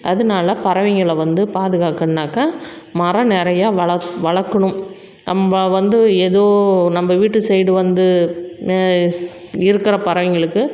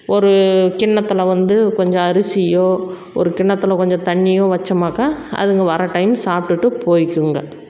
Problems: background sounds at intervals